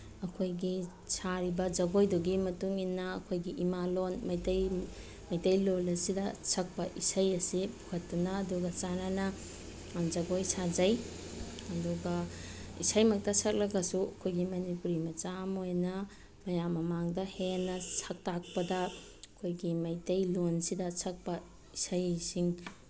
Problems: background sounds at intervals